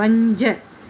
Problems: constant background noise